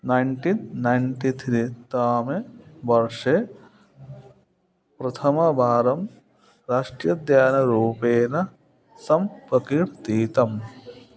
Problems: constant background noise